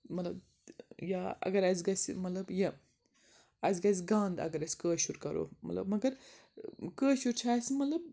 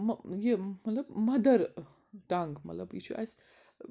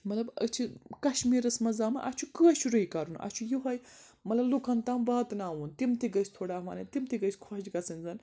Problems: background sounds at intervals